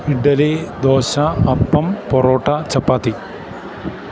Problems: constant background noise